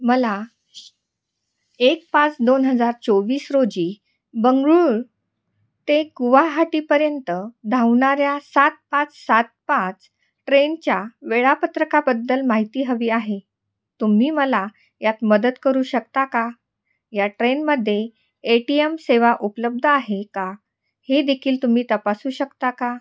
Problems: background sounds at intervals